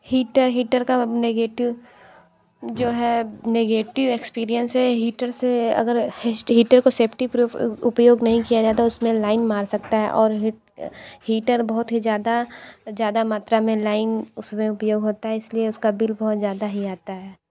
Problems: background sounds at intervals